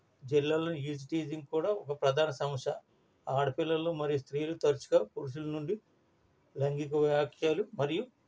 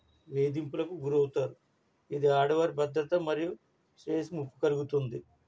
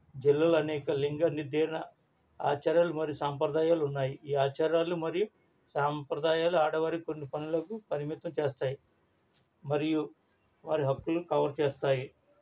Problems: low volume